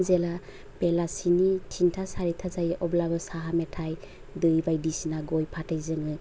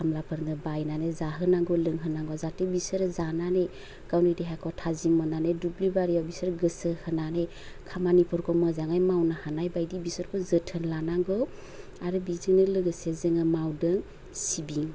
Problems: none marked